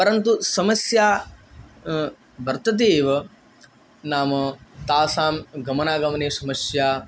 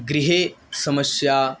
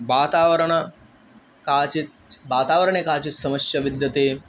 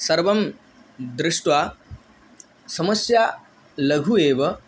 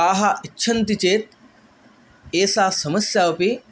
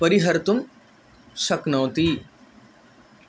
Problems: none marked